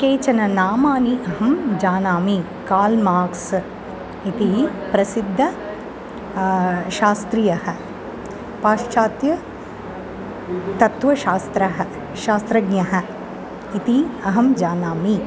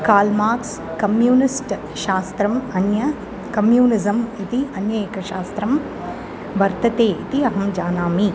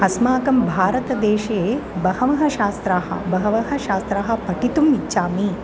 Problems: constant background noise